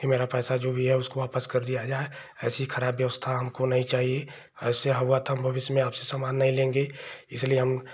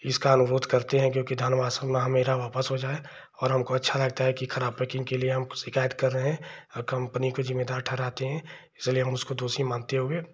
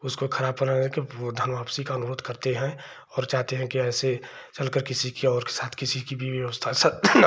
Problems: none marked